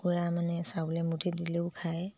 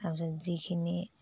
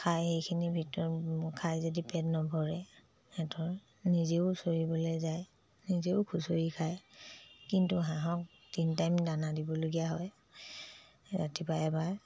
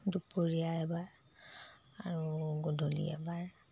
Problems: low volume